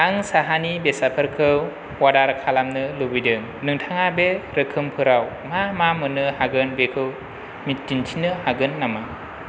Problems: constant background noise